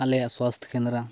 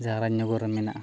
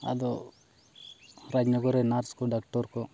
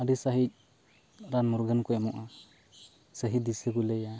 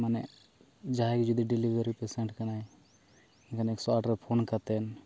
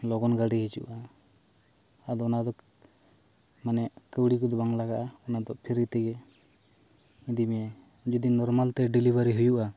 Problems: background sounds at intervals